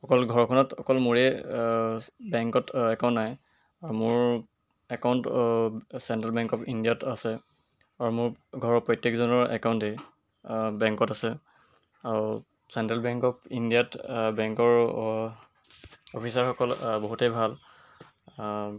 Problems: none marked